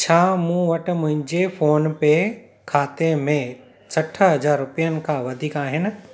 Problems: constant background noise, echo